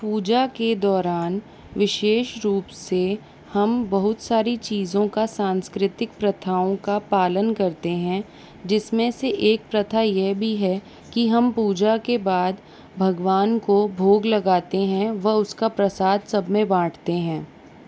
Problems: constant background noise